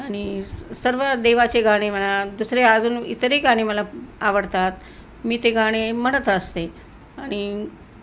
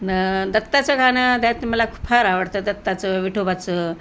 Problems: none marked